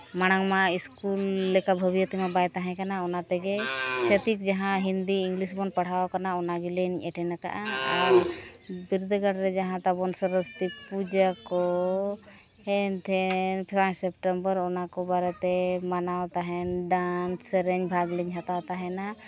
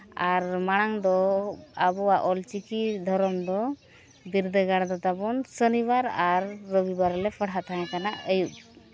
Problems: continuous background conversations